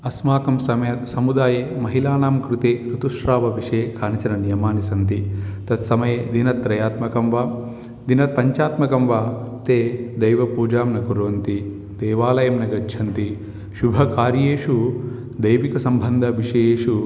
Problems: background sounds at intervals